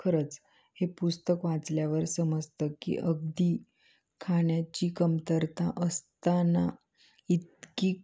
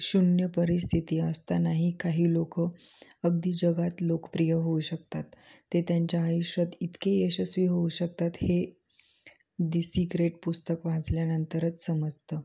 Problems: none marked